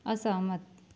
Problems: none marked